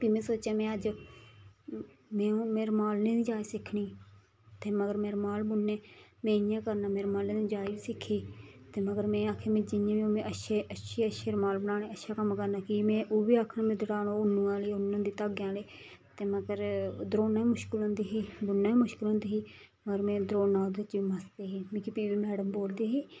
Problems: background sounds at intervals